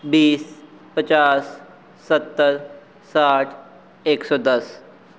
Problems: none marked